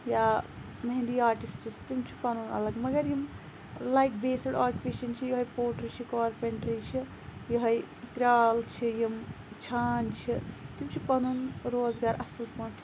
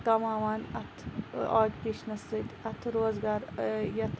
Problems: background sounds at intervals